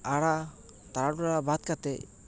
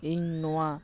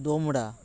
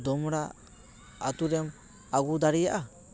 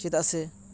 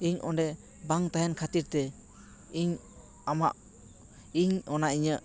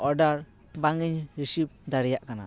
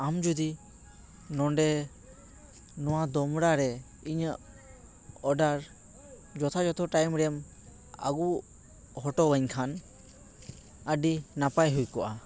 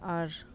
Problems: background sounds at intervals, continuous background conversations